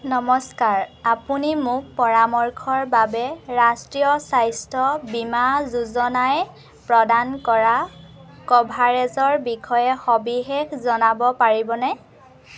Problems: none marked